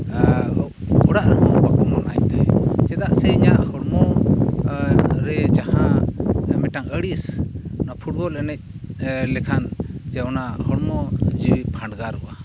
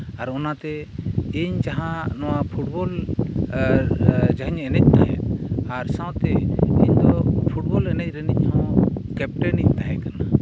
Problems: none marked